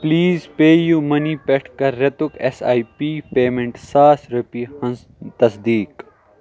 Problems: background sounds at intervals